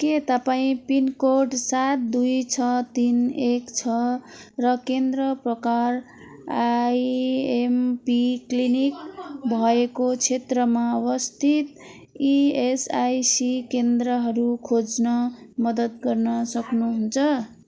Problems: continuous background conversations